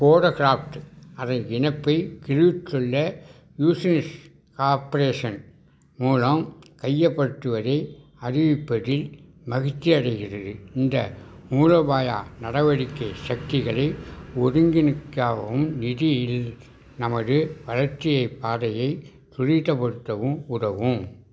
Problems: background sounds at intervals